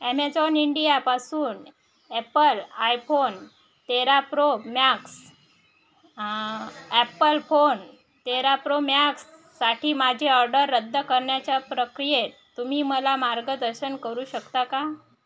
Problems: background conversations at intervals